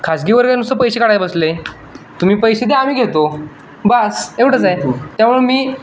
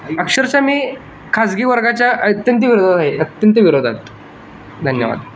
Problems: none marked